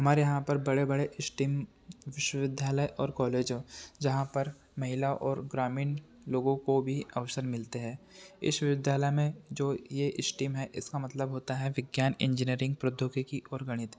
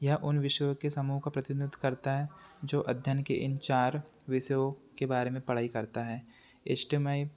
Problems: constant background noise